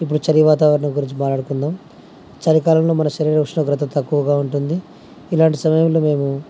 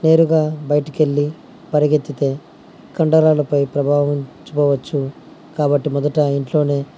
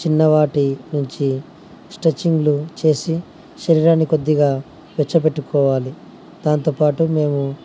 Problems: constant background noise